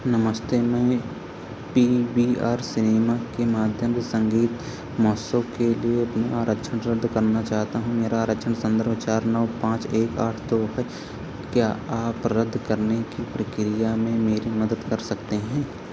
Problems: constant background noise